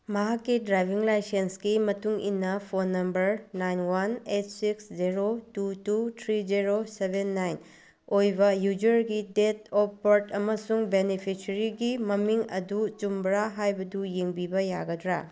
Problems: none marked